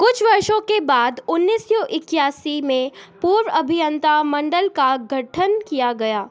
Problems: none marked